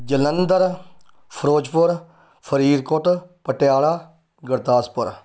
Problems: none marked